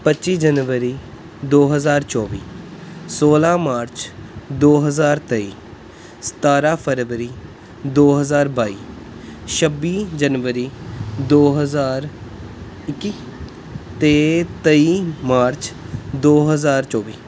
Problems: background sounds at intervals